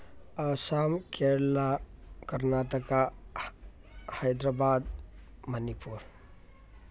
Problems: background conversations at intervals